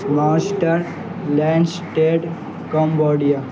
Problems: constant background noise